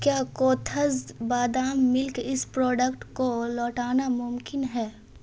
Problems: constant background noise